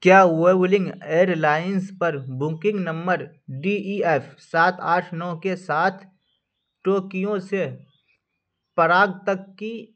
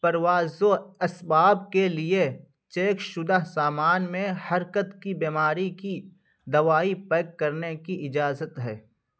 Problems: none marked